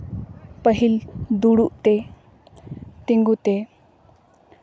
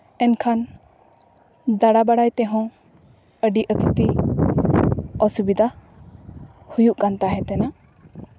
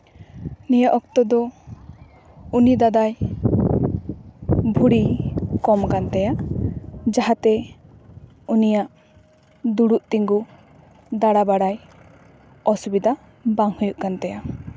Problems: background sounds at intervals